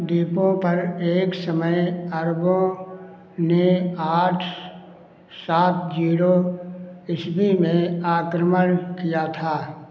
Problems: constant background noise